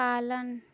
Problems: low volume